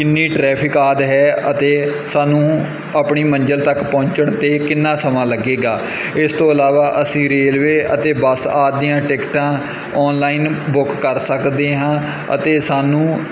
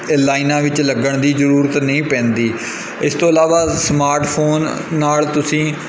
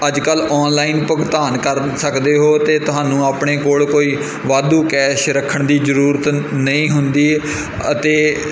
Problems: background sounds at intervals